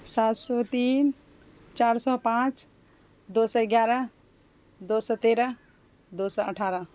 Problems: constant background noise